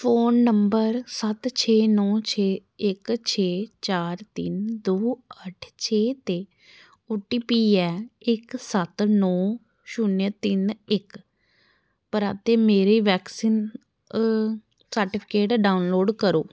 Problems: none marked